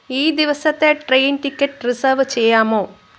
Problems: constant background noise